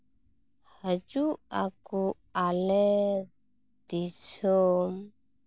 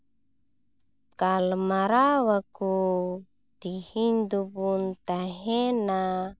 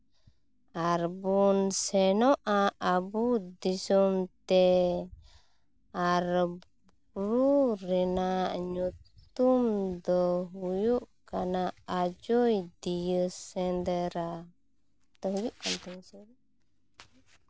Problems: background sounds at intervals